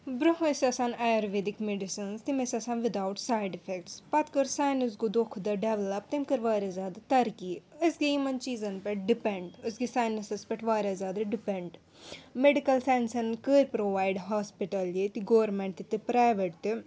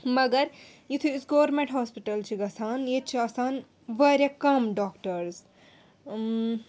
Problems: background sounds at intervals